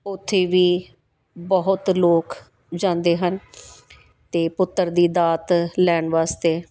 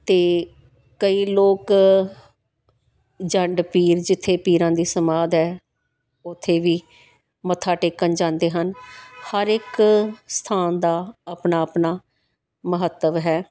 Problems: background sounds at intervals